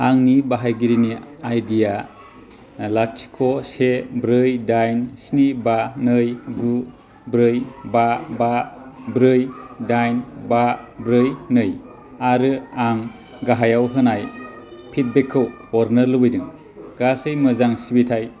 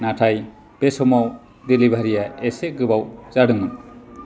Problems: constant background noise